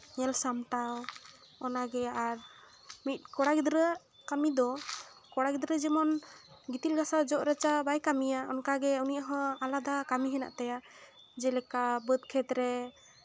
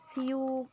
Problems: none marked